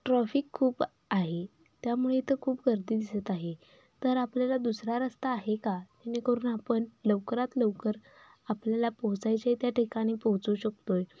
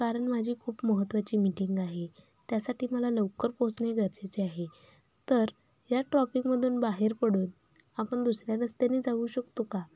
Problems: none marked